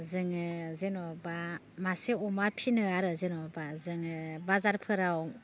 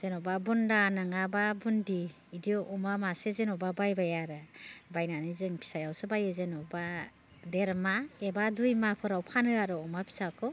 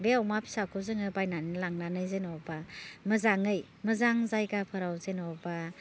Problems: low volume